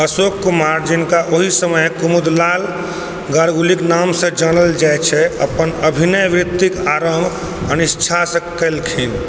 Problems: background sounds at intervals